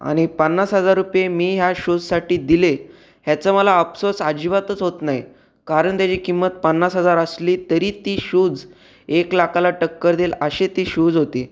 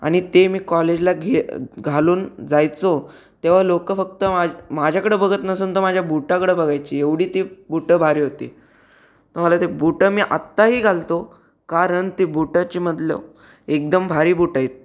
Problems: background sounds at intervals